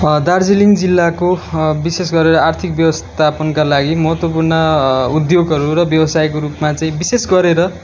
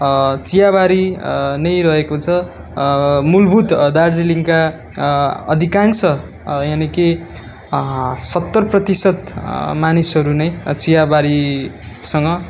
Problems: constant background noise